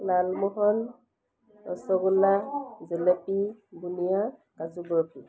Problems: background sounds at intervals